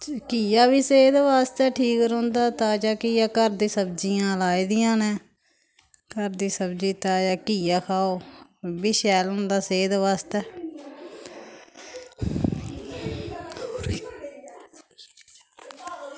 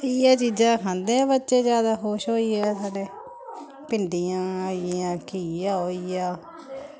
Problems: constant background noise, background conversations at intervals